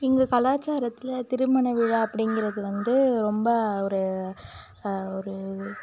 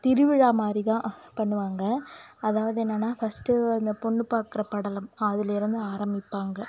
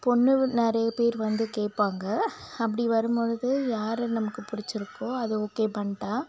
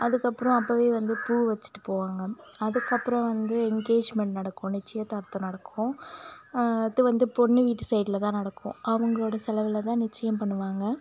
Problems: constant background noise